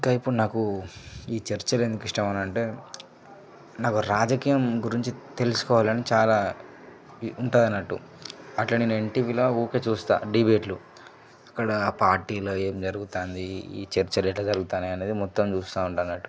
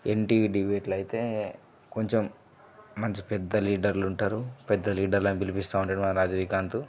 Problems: low volume